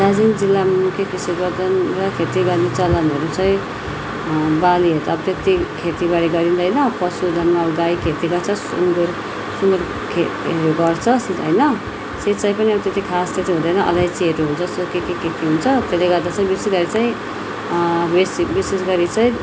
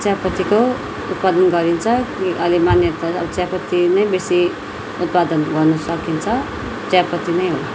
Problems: constant background noise, continuous background conversations